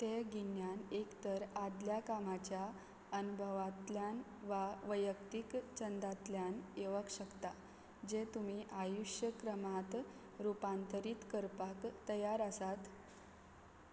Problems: background sounds at intervals